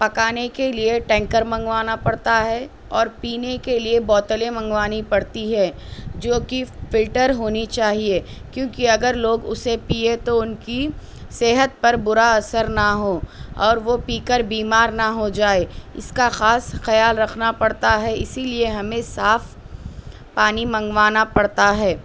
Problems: constant background noise